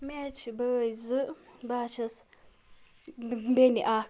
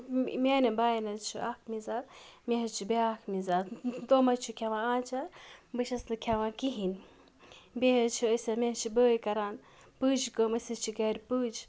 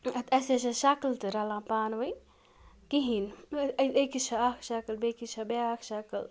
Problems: background sounds at intervals